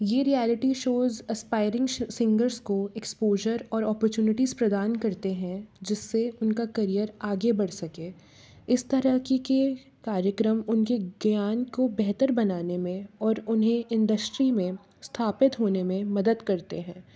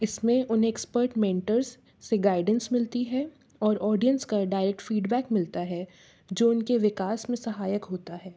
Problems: background sounds at intervals